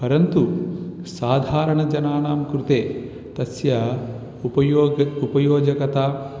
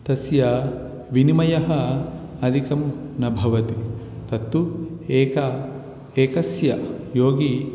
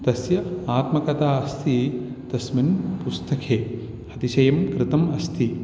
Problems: none marked